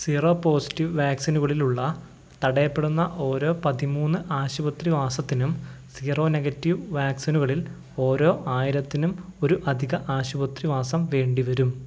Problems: low volume